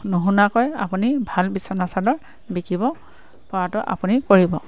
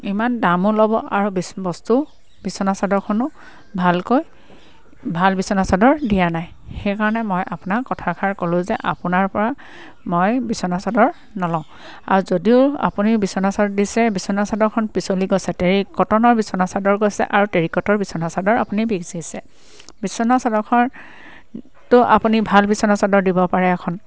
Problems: constant background noise, background conversations at intervals